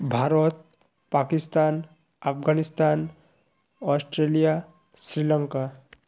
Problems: constant background noise